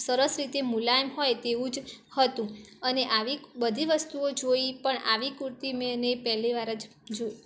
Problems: none marked